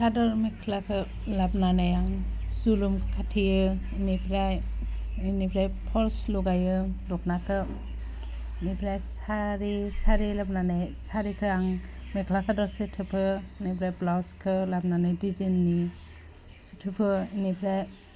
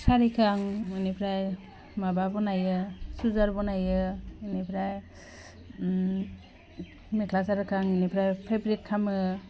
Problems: constant background noise